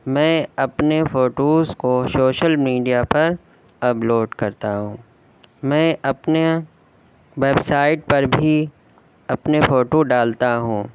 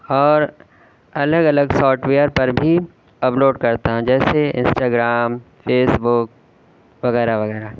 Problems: constant background noise